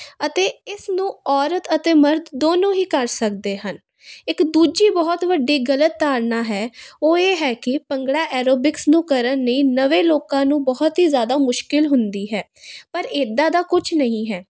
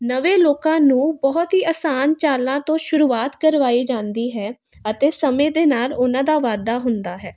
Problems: constant background noise